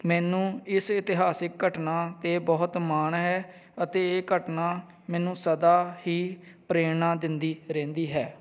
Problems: background sounds at intervals